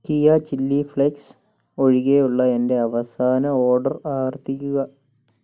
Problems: low volume